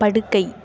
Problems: background sounds at intervals